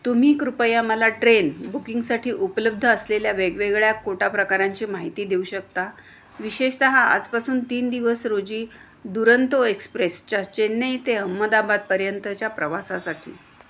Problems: constant background noise